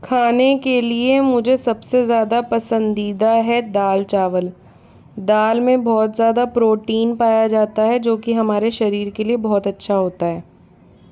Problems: constant background noise